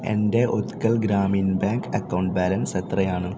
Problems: constant background noise